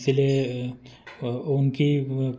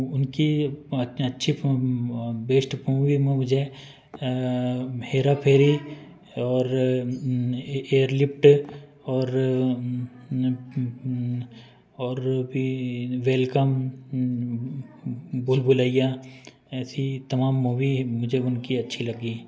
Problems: background conversations at intervals